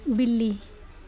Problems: none marked